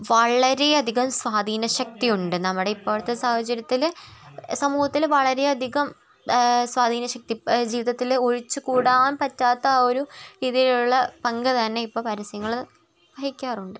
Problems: background sounds at intervals, continuous background conversations